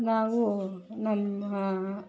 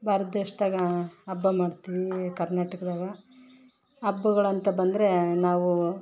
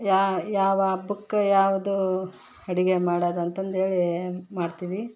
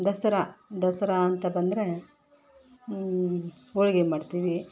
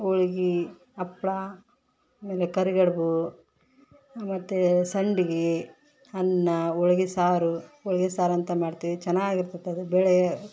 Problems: background sounds at intervals